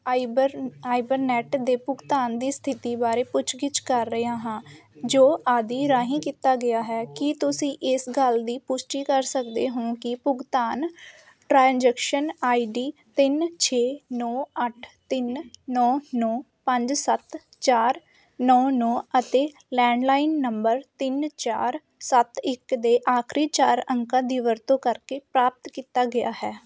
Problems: constant background noise